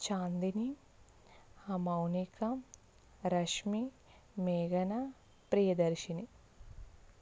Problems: none marked